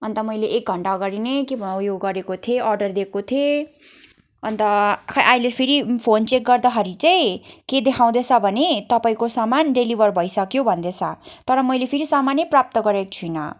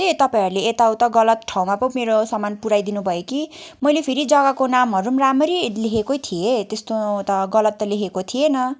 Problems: background sounds at intervals